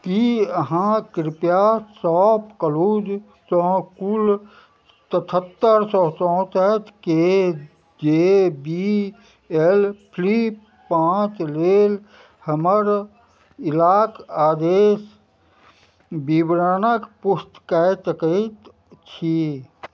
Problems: none marked